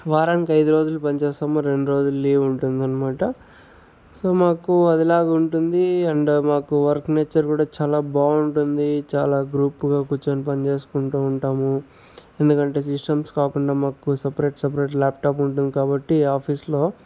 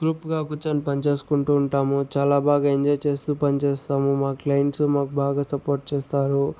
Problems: background sounds at intervals